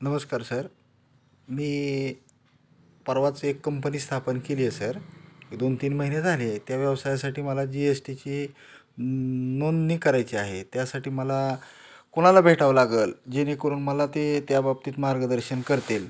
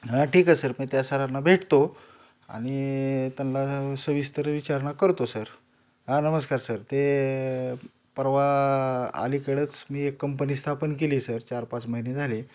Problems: none marked